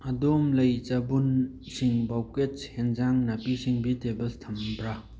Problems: background sounds at intervals